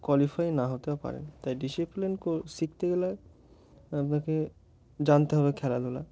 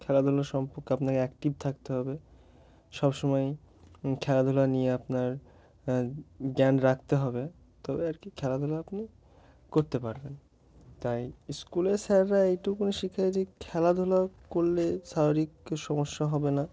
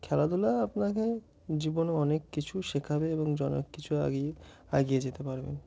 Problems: background sounds at intervals